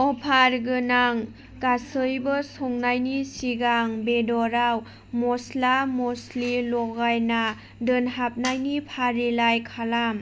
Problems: none marked